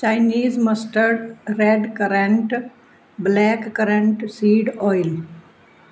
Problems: background sounds at intervals